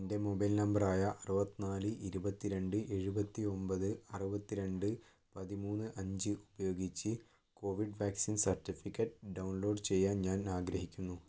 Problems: none marked